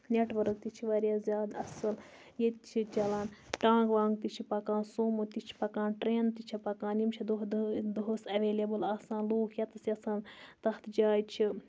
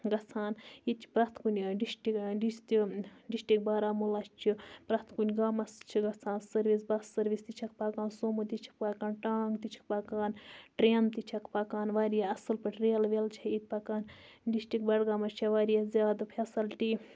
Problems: none marked